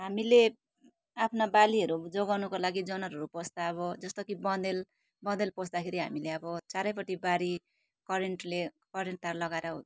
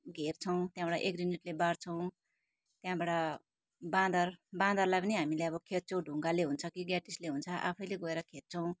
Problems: none marked